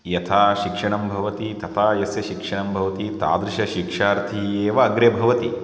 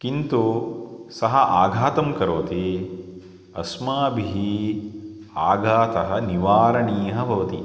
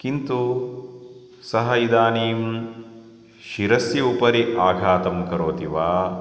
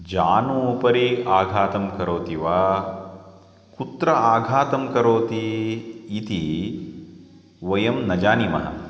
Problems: none marked